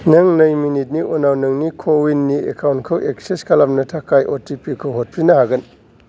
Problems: background sounds at intervals